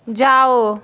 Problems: constant background noise